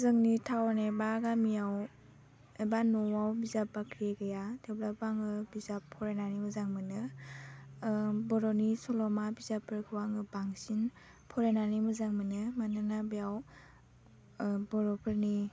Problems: low volume